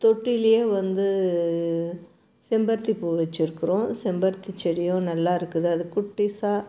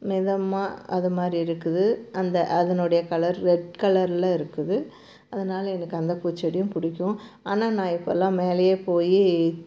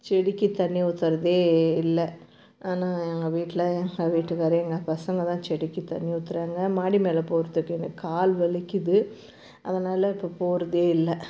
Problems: constant background noise